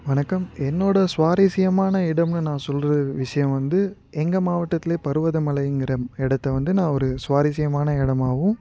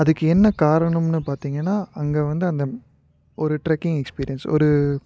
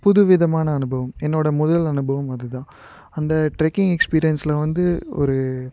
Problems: none marked